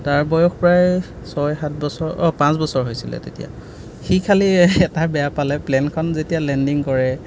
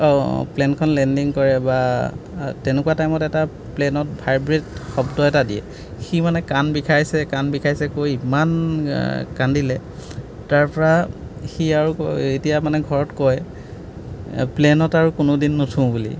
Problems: background sounds at intervals